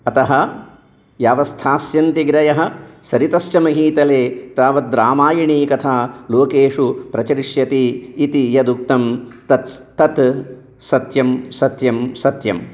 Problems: none marked